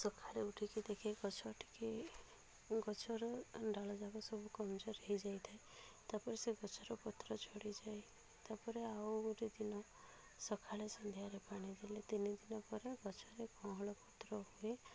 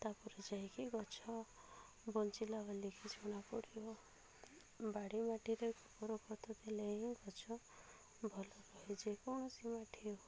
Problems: low volume